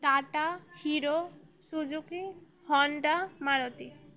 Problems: none marked